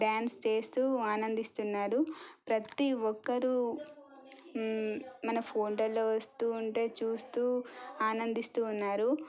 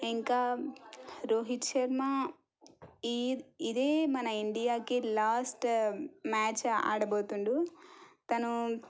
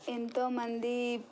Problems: low volume